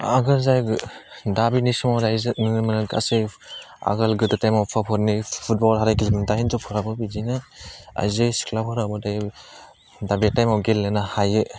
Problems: constant background noise